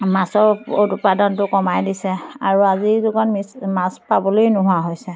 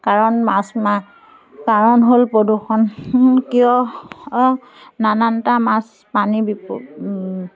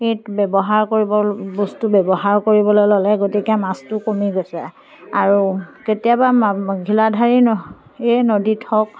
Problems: background sounds at intervals